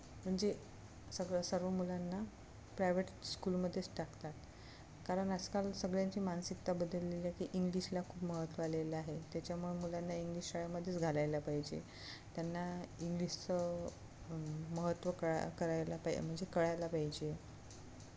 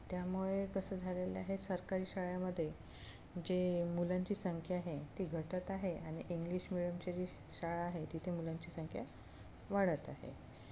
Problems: none marked